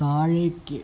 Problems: none marked